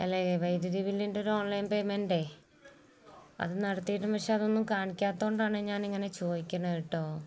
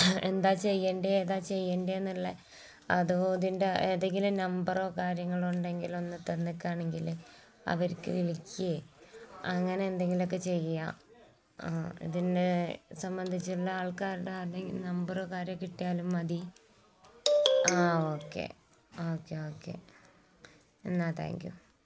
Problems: background sounds at intervals